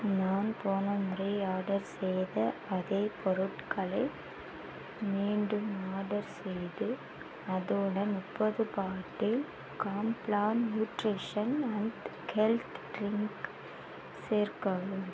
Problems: constant background noise